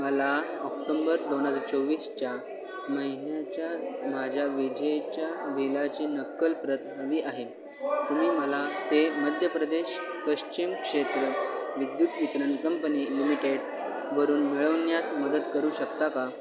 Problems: constant background noise, continuous background conversations